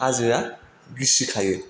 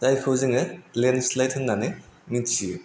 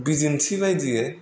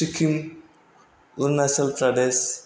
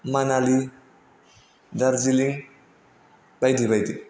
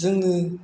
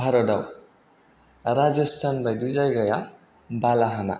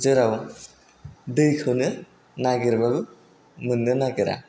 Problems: none marked